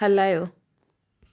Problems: none marked